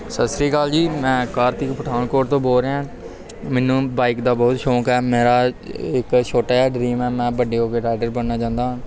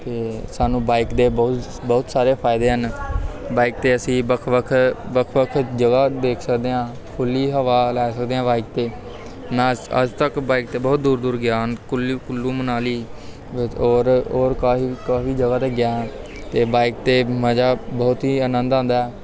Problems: constant background noise, continuous background conversations